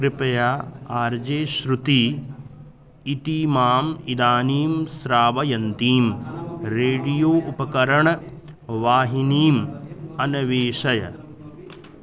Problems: constant background noise, background conversations at intervals